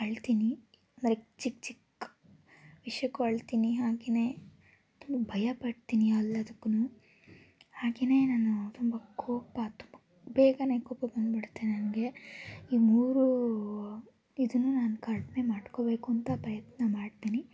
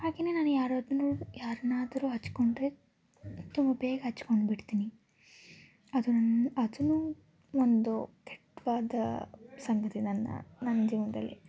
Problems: constant background noise, background conversations at intervals